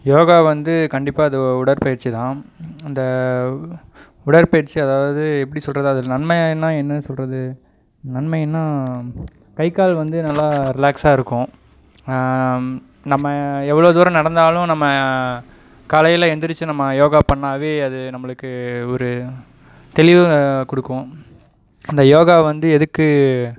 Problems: none marked